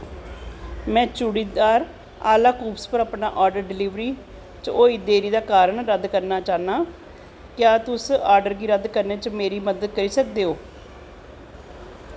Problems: constant background noise